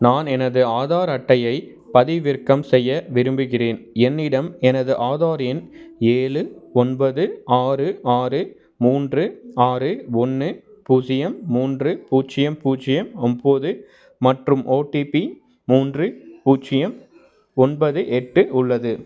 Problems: background sounds at intervals